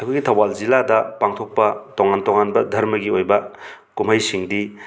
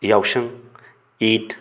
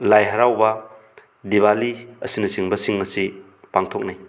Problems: constant background noise